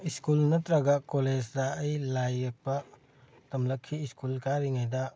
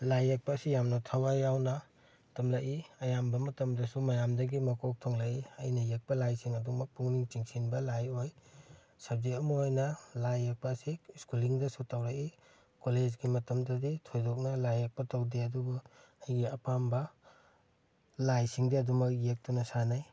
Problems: none marked